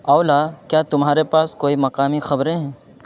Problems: constant background noise